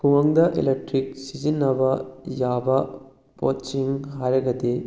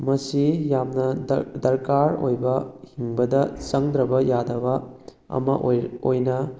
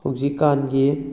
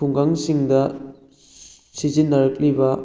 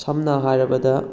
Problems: background conversations at intervals